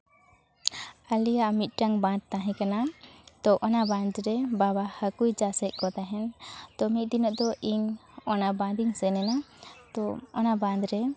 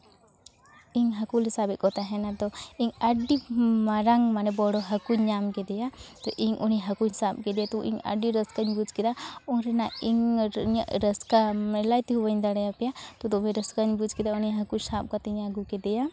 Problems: constant background noise, continuous background conversations